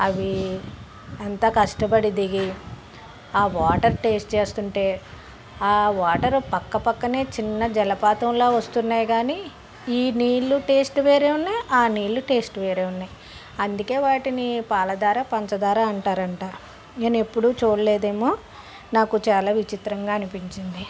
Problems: constant background noise, background conversations at intervals